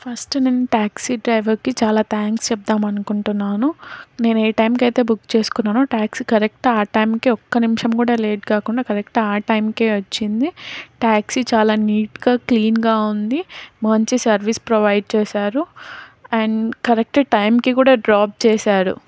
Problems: background sounds at intervals